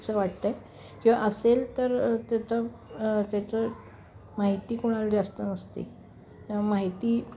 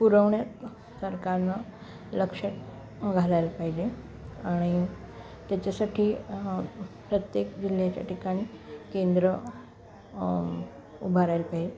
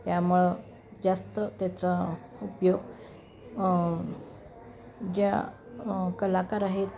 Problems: none marked